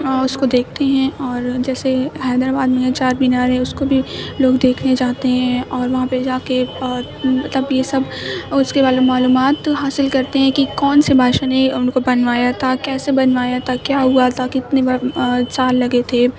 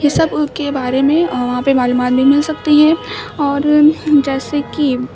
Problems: constant background noise, continuous background conversations